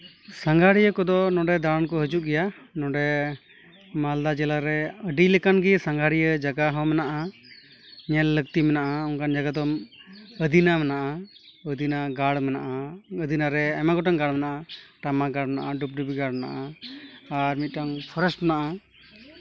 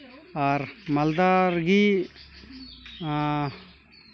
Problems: background conversations at intervals